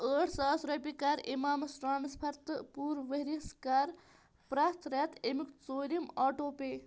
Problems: constant background noise